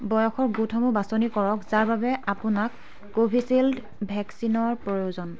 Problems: continuous background conversations